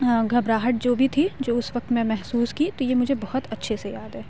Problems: constant background noise